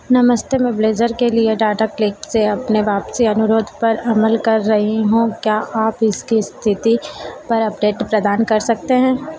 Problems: constant background noise